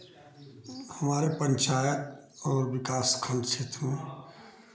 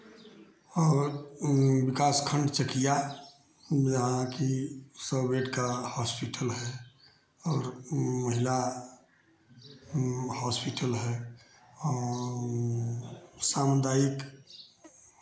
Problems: none marked